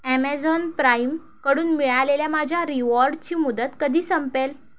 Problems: none marked